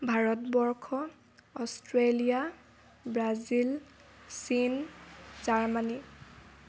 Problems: background sounds at intervals